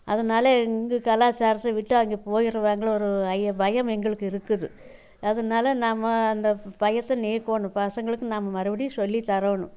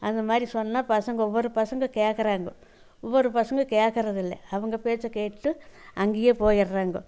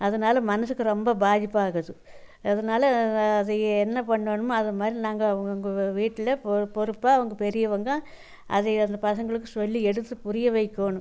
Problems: none marked